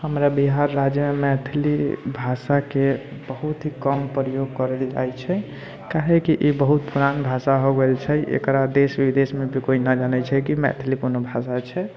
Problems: constant background noise